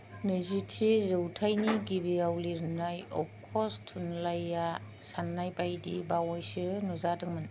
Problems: low volume